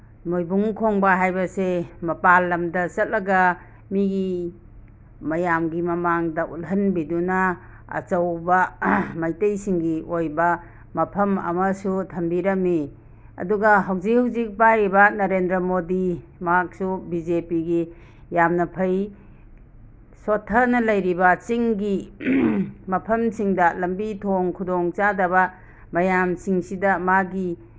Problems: none marked